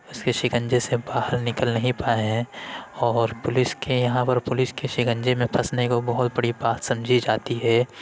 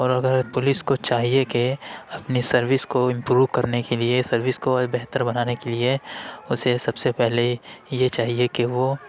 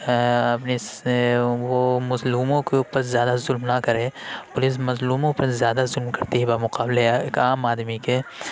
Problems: constant background noise